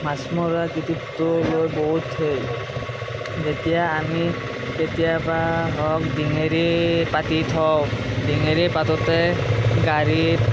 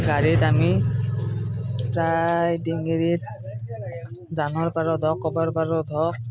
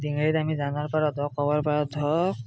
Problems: constant background noise